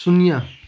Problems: none marked